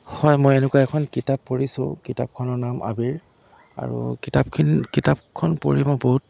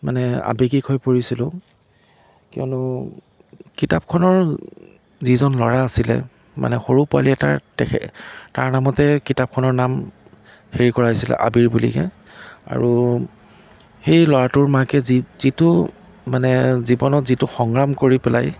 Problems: none marked